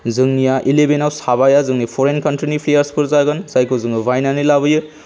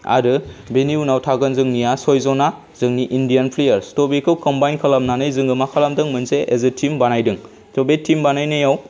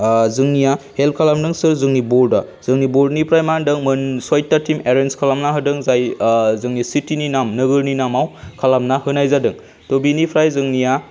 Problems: low volume